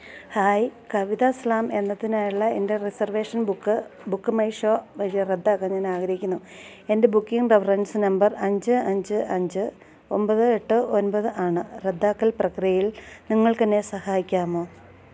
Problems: constant background noise, low volume